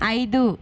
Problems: constant background noise